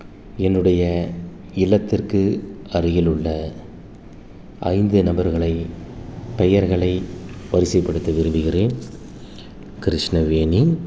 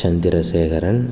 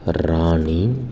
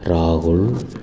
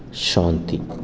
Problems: constant background noise